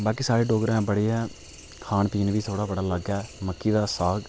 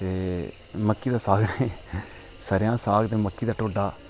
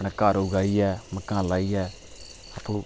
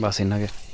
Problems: constant background noise